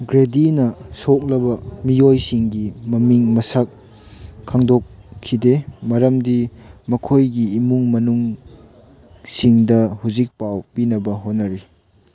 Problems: background sounds at intervals